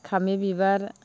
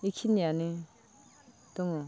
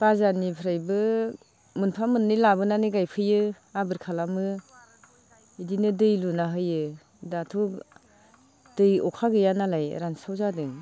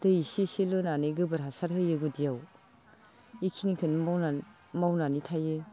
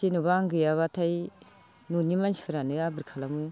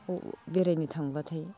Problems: low volume